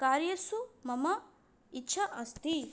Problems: none marked